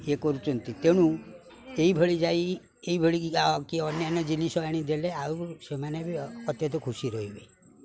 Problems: constant background noise, continuous background conversations